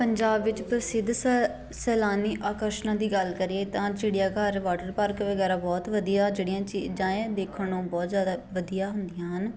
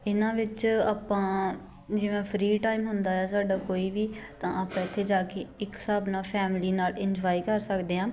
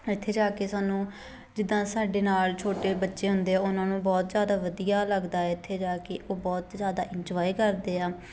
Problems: constant background noise, continuous background conversations